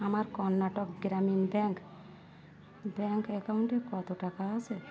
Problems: continuous background conversations